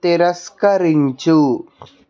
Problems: background sounds at intervals